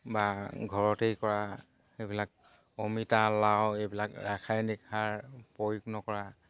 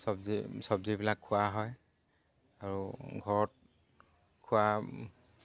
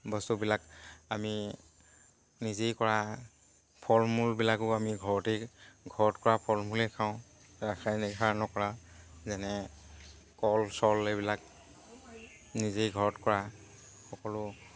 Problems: constant background noise